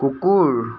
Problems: constant background noise